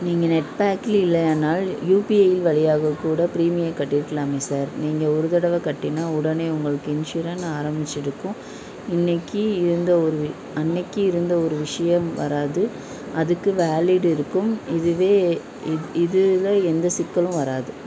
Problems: constant background noise, continuous background conversations